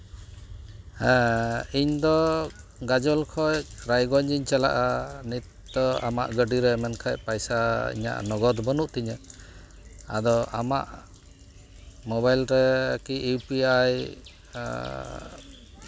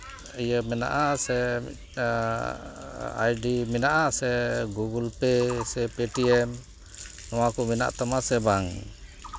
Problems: constant background noise